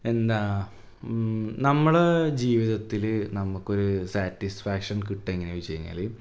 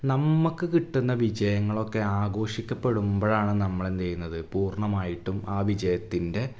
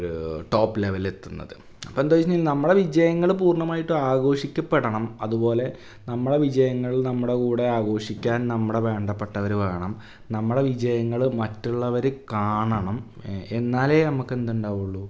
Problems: none marked